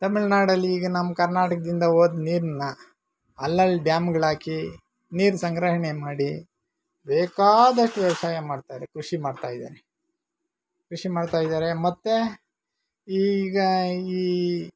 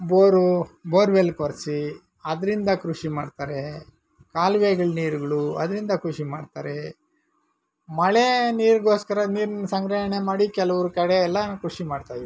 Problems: none marked